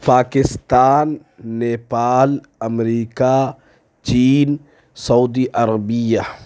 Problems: none marked